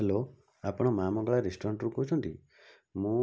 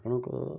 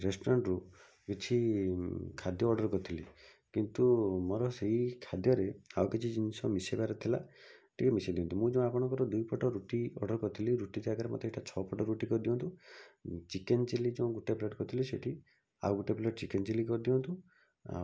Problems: none marked